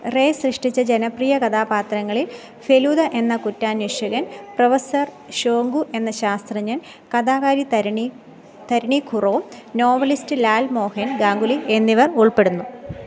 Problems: background sounds at intervals